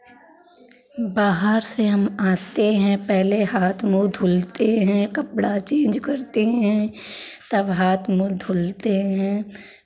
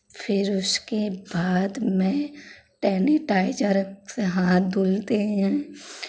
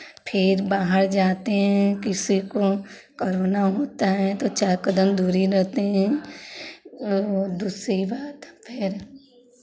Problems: constant background noise, continuous background conversations